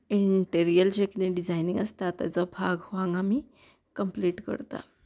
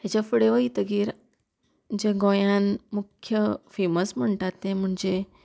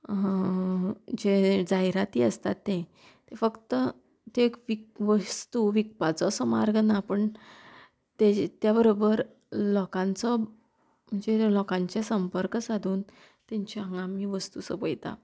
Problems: constant background noise